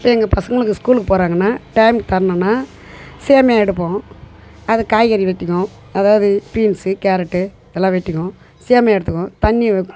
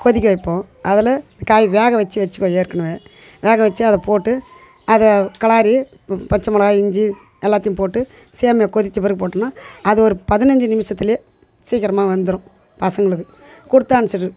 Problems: background sounds at intervals, background conversations at intervals